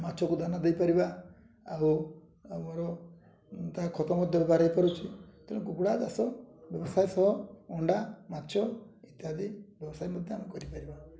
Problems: low volume